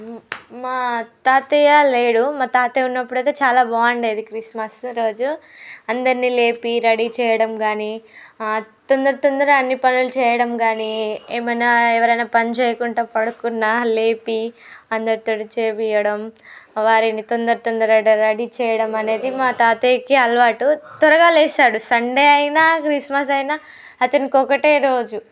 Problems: background sounds at intervals, background conversations at intervals